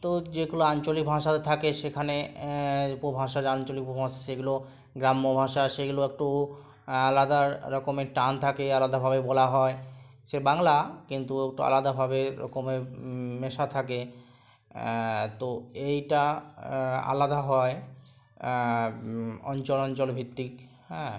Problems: none marked